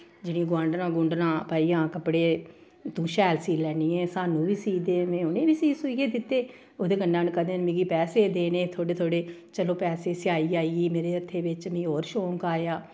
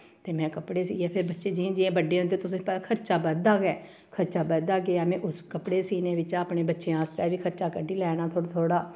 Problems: none marked